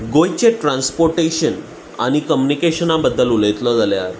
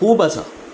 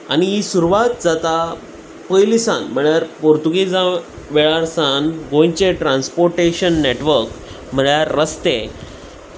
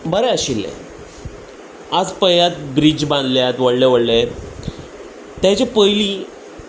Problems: constant background noise